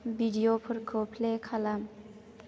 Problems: none marked